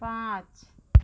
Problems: none marked